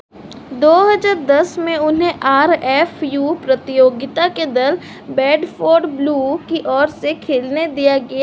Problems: constant background noise